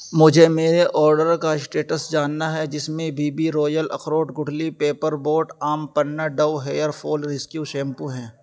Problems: none marked